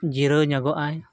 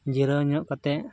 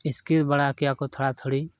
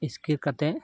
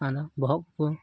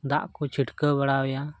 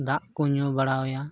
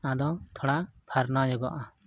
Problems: background sounds at intervals